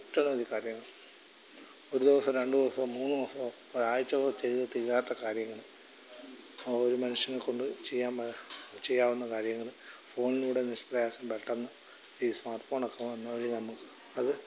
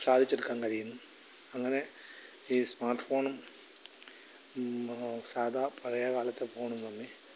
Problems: background sounds at intervals, low volume